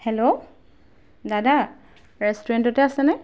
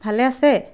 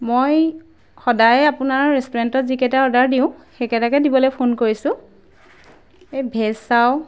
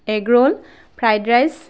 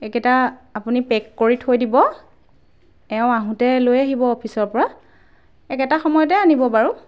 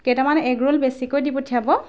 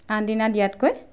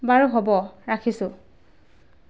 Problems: background sounds at intervals